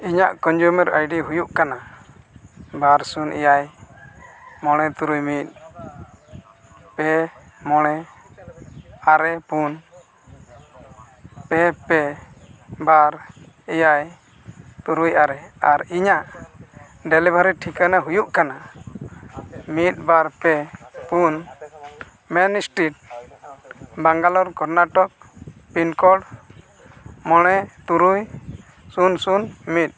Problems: constant background noise, continuous background conversations